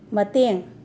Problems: constant background noise